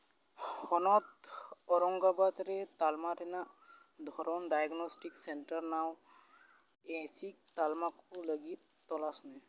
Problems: background sounds at intervals, echo